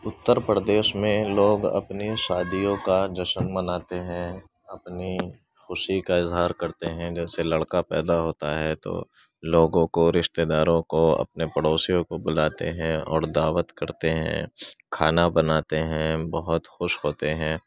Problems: constant background noise, background conversations at intervals, low volume